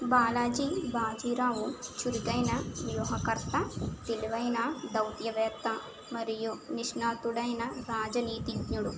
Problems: constant background noise